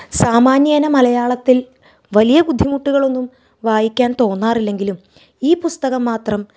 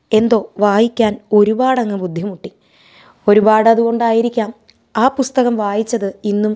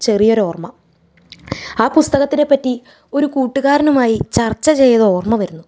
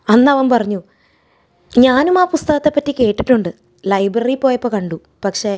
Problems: none marked